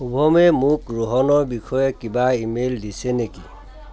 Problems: continuous background conversations